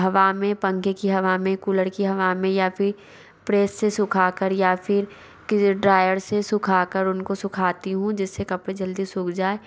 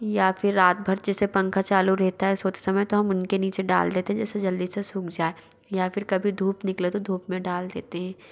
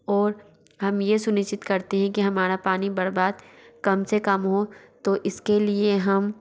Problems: background sounds at intervals